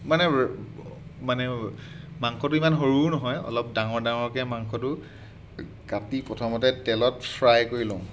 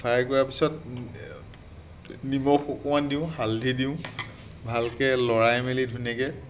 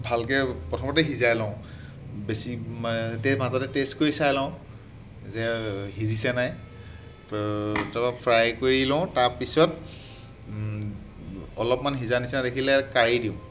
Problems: background sounds at intervals